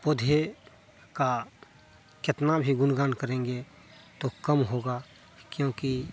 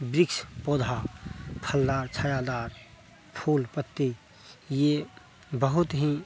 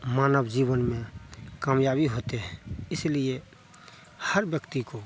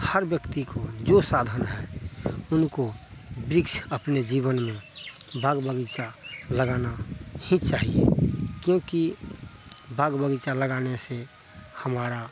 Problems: none marked